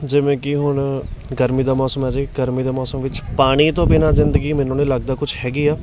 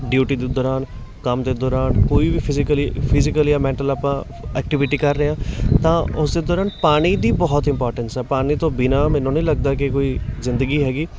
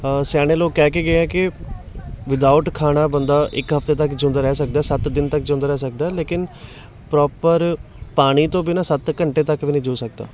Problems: constant background noise, background conversations at intervals